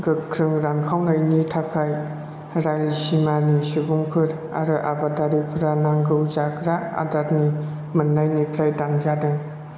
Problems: constant background noise